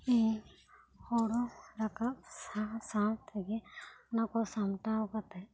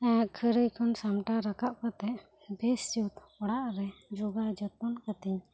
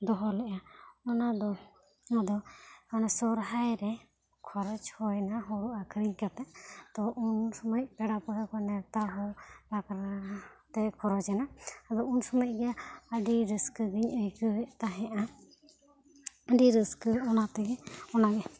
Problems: none marked